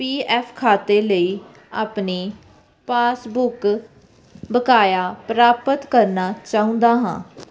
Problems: constant background noise